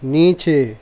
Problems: none marked